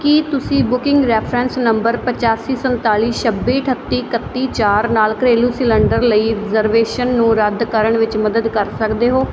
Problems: none marked